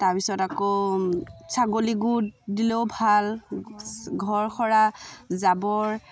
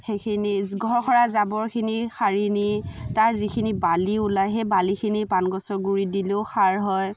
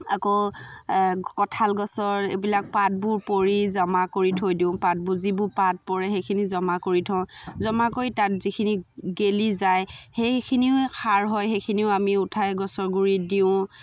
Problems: background sounds at intervals, background conversations at intervals